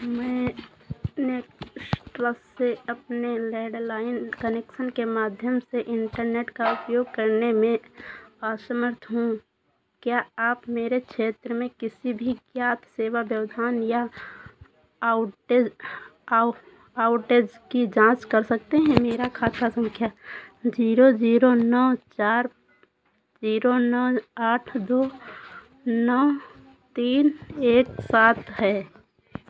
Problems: constant background noise